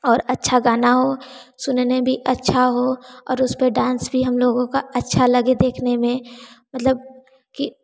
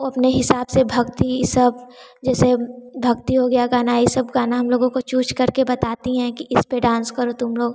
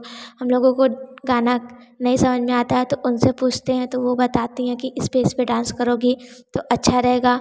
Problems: none marked